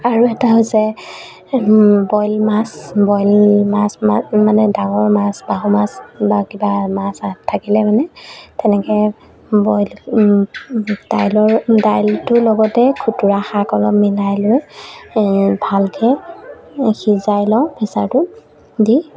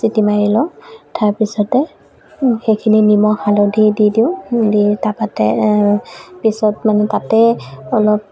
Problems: background sounds at intervals